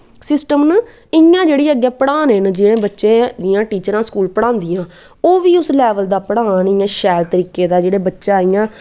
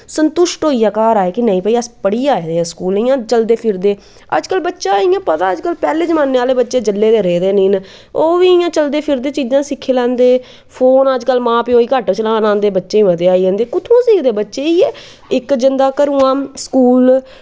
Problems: background sounds at intervals, background conversations at intervals